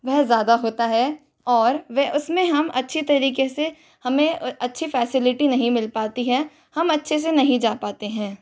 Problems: constant background noise